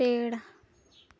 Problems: low volume